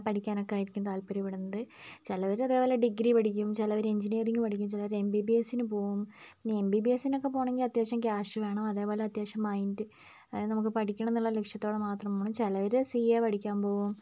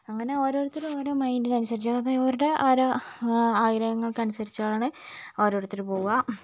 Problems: low volume